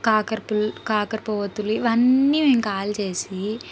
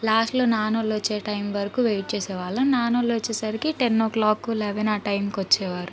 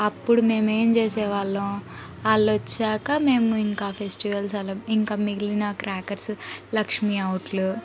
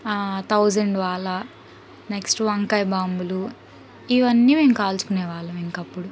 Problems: background conversations at intervals